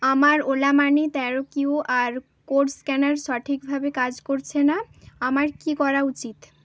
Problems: constant background noise